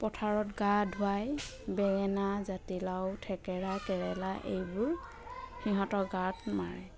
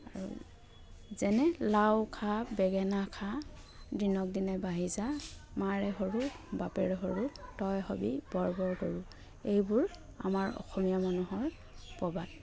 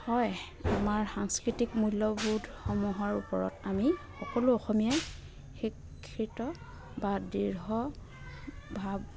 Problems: none marked